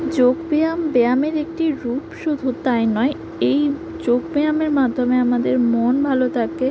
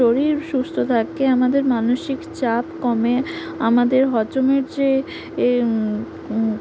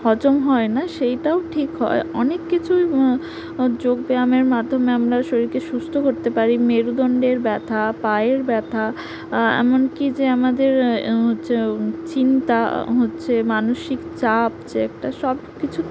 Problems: background sounds at intervals